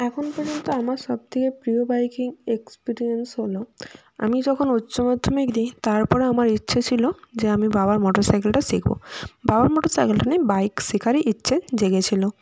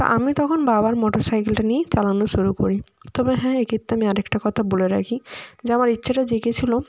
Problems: none marked